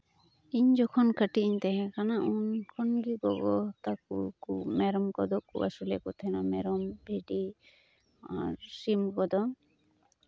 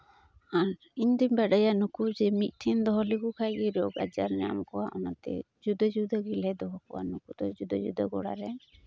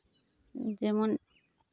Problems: constant background noise, background conversations at intervals